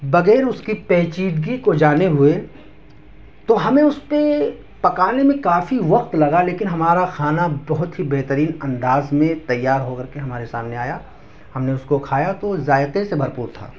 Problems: background sounds at intervals